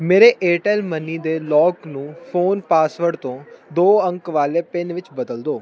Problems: none marked